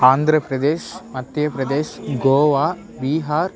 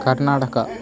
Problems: continuous background conversations